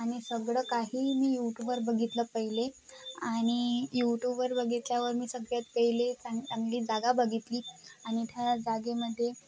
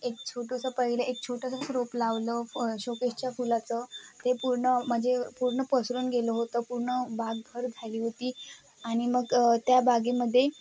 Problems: constant background noise, background conversations at intervals